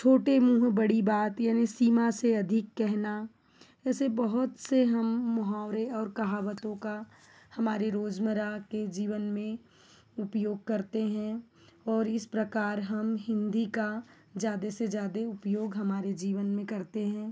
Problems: background sounds at intervals